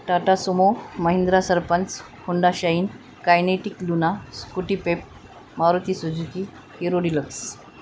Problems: none marked